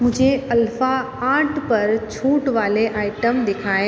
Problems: constant background noise, background conversations at intervals